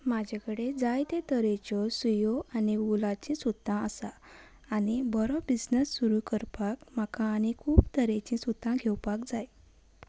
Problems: background sounds at intervals